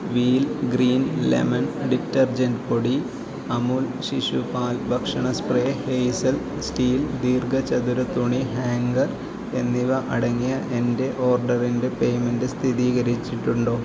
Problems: continuous background conversations, low volume